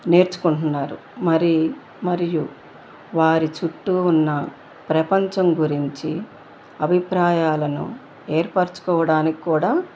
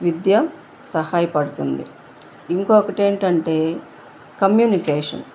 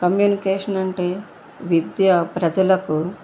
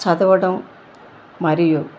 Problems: constant background noise